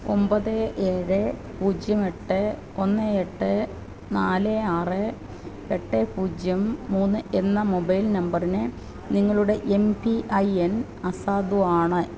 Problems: constant background noise